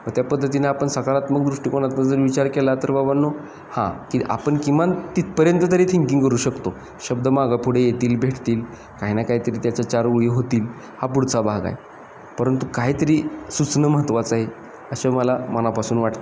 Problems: constant background noise, background conversations at intervals